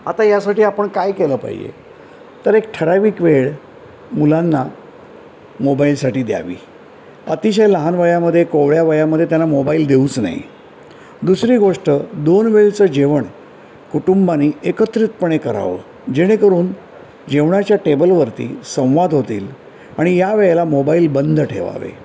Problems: background sounds at intervals